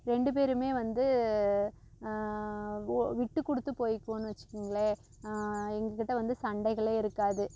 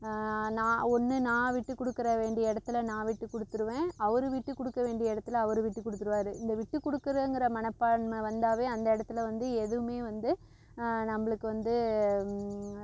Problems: constant background noise